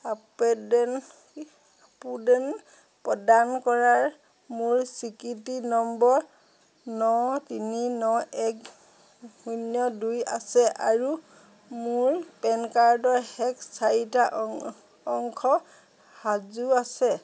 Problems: none marked